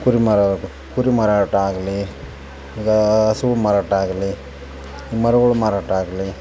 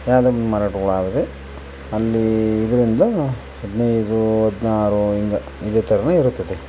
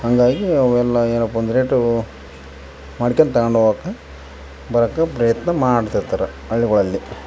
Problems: constant background noise